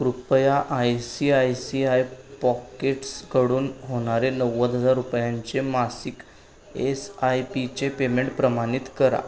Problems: constant background noise, background conversations at intervals